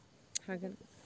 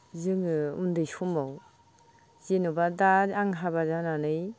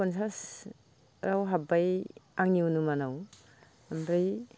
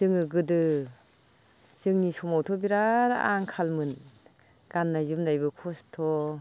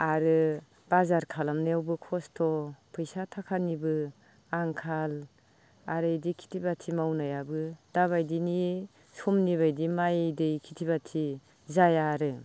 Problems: constant background noise